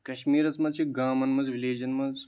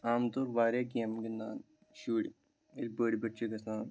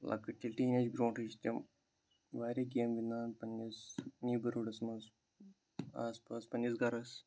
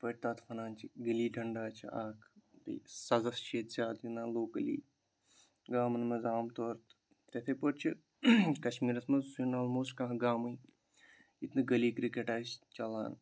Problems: none marked